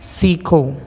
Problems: constant background noise